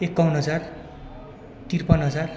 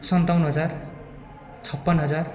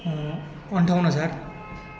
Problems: constant background noise, continuous background conversations